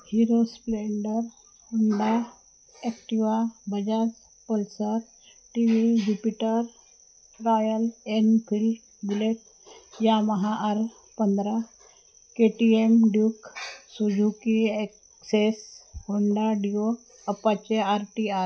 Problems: constant background noise, background conversations at intervals, low volume